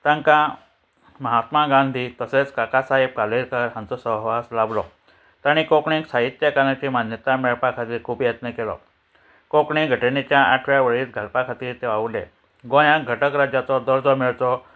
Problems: none marked